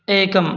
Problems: none marked